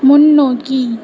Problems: constant background noise